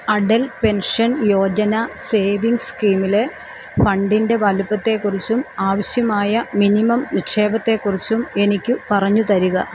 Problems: constant background noise